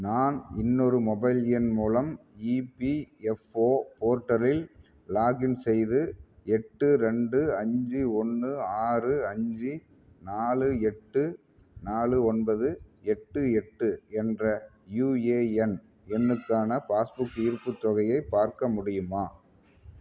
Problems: background conversations at intervals